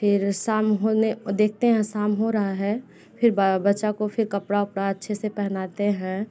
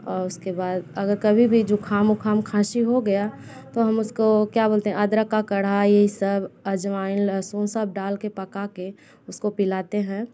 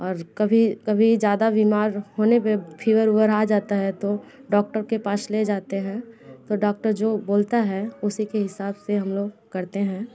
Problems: continuous background conversations